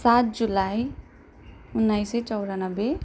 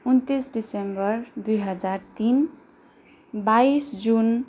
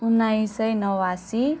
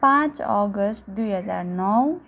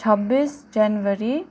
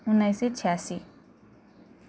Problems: none marked